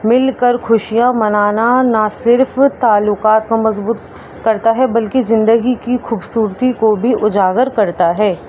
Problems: constant background noise